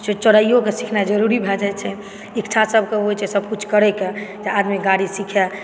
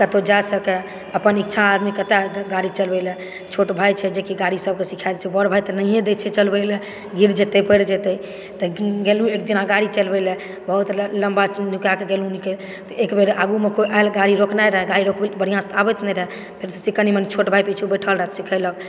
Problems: background sounds at intervals, background conversations at intervals